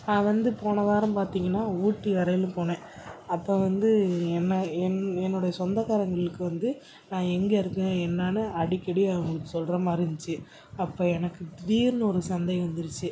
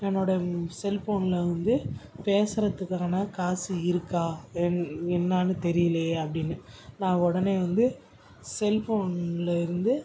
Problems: background sounds at intervals